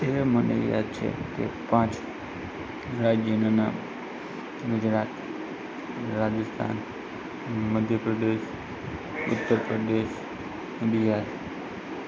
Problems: constant background noise, background conversations at intervals